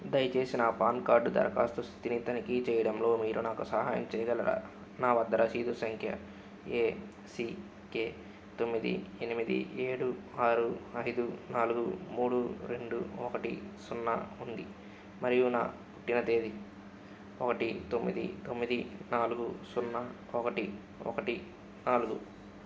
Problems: none marked